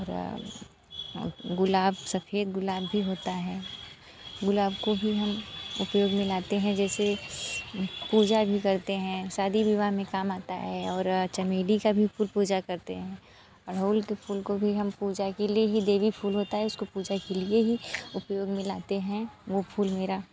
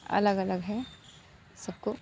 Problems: constant background noise, background conversations at intervals